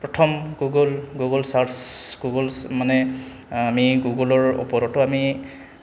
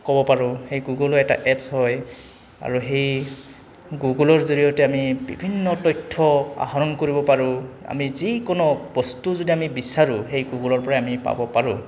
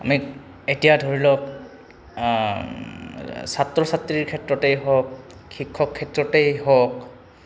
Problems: background sounds at intervals